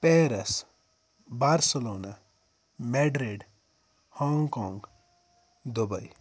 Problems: background sounds at intervals